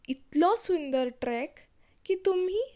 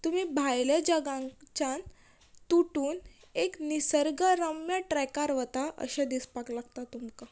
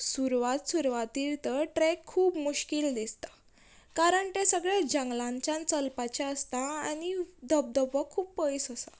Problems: background sounds at intervals